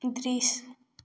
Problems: background sounds at intervals